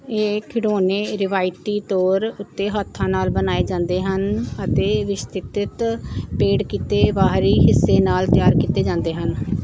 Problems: background sounds at intervals, background conversations at intervals